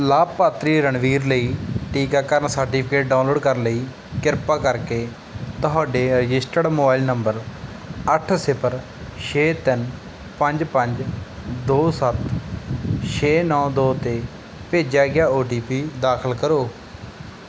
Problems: background sounds at intervals